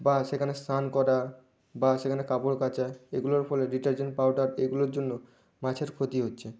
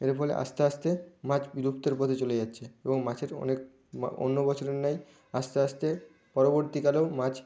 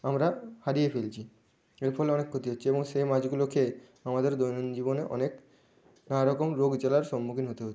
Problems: none marked